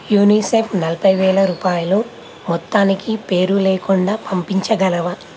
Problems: none marked